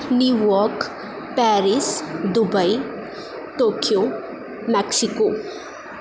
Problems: constant background noise